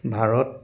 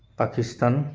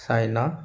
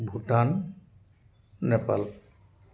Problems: background sounds at intervals